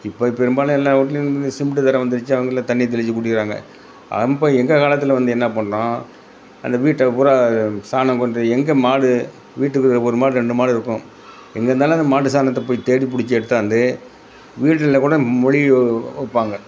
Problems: none marked